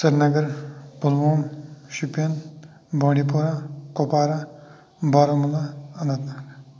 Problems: none marked